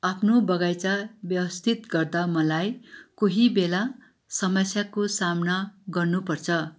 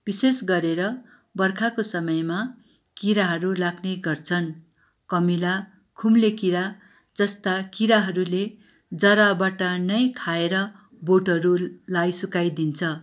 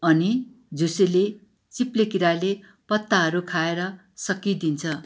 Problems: background sounds at intervals